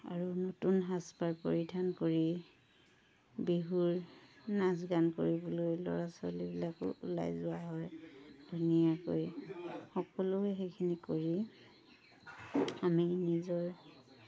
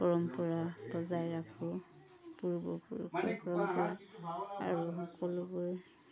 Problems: constant background noise